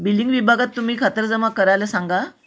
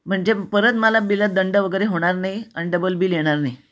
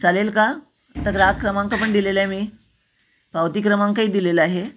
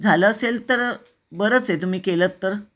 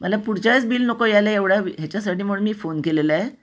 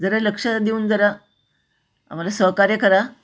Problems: constant background noise, echo